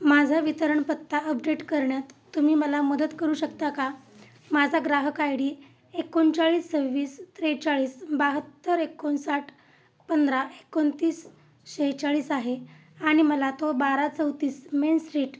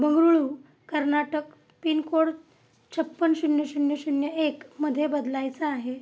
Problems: constant background noise